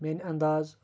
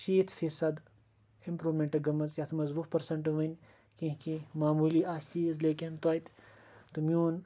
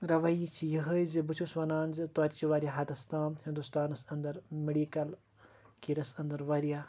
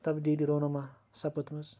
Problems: none marked